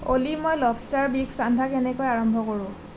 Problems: none marked